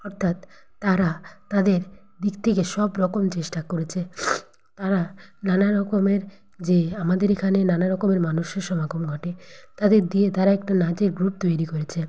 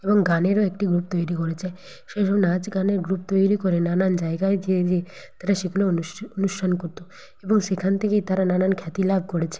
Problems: constant background noise